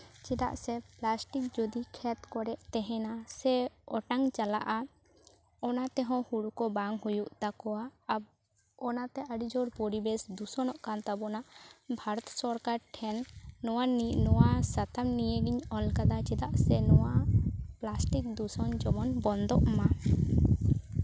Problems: constant background noise, background conversations at intervals